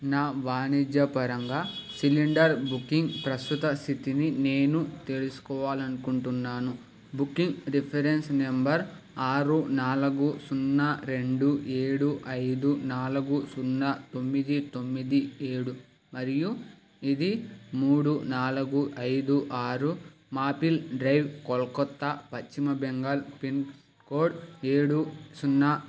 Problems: constant background noise